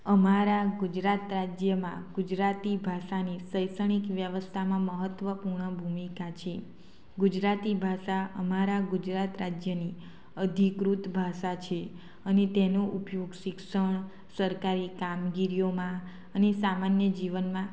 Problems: constant background noise